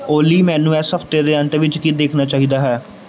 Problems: background sounds at intervals